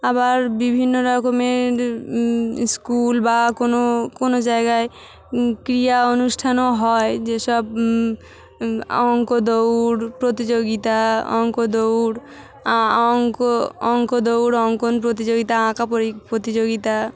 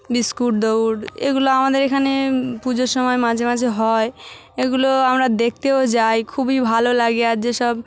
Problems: constant background noise, background conversations at intervals